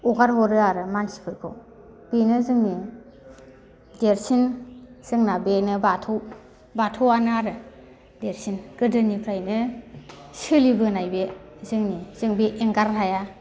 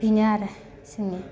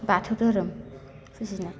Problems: none marked